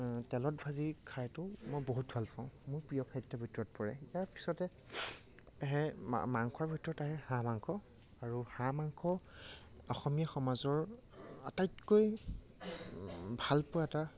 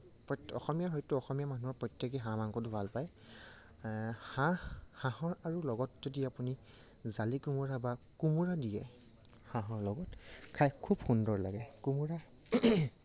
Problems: low volume